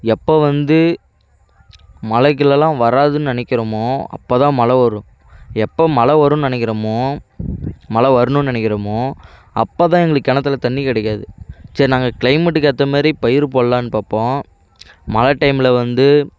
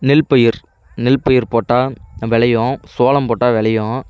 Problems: none marked